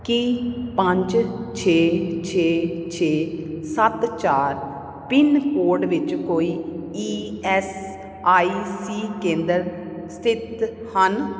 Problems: none marked